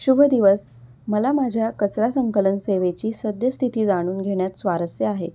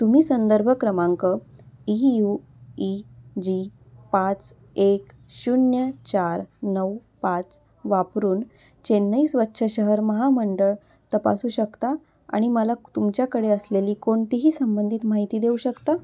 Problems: constant background noise